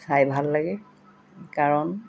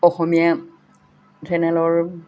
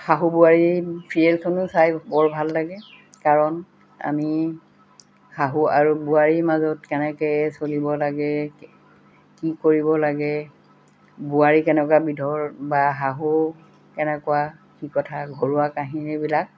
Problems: constant background noise